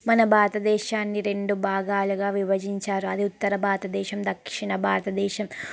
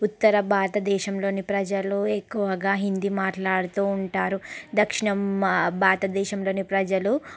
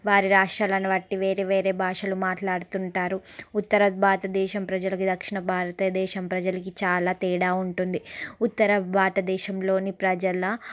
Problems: background conversations at intervals